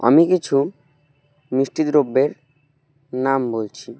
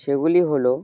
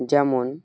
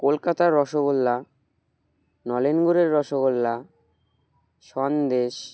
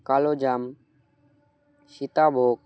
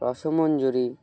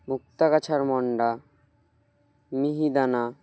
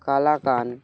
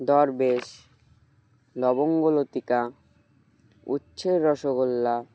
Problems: none marked